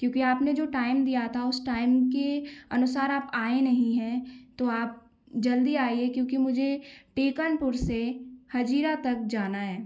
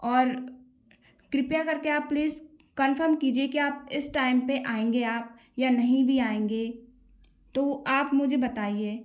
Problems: constant background noise